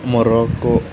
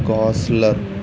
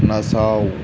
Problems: constant background noise